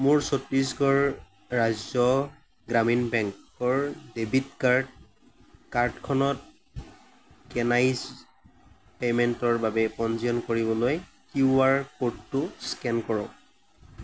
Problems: background sounds at intervals